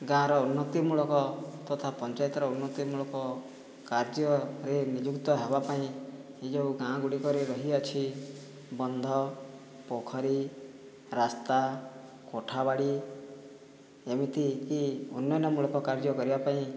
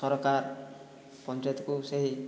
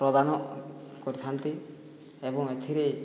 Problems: low volume